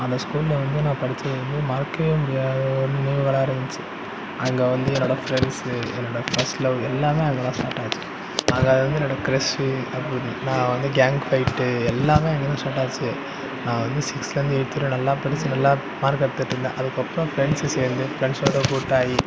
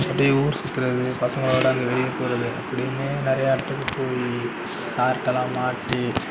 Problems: constant background noise